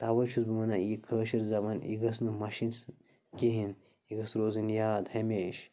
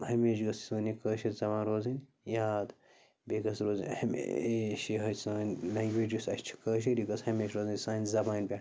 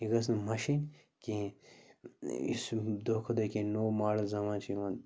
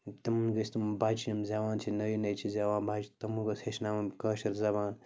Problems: background sounds at intervals, low volume